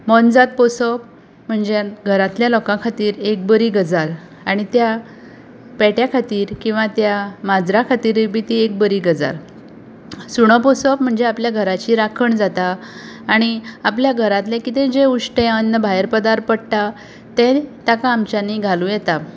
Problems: none marked